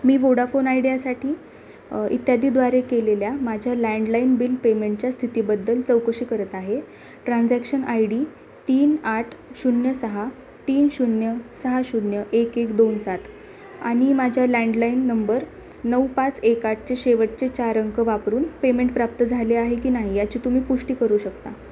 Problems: constant background noise, continuous background conversations